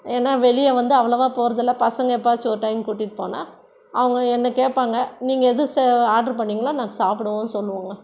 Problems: none marked